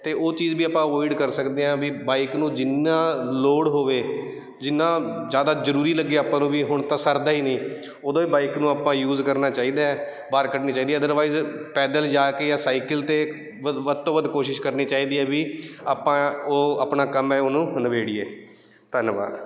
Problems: none marked